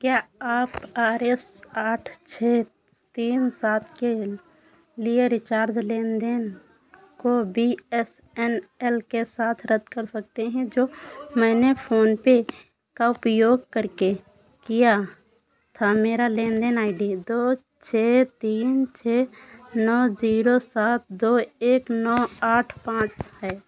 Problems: constant background noise